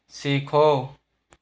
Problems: none marked